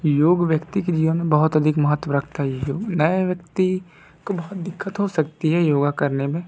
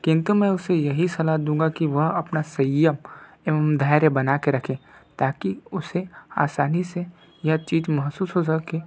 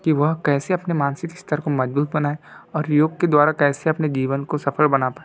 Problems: none marked